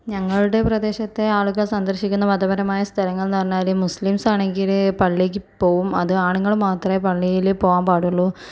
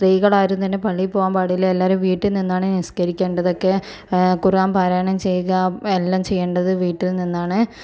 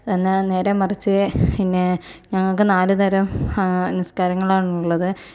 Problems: none marked